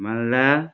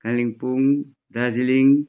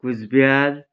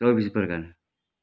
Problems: none marked